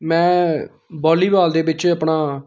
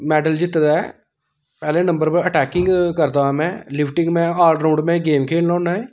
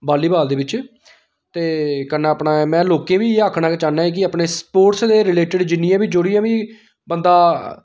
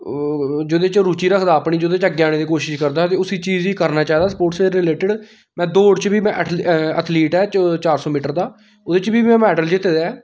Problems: background sounds at intervals